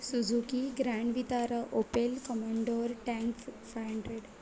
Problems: constant background noise, background conversations at intervals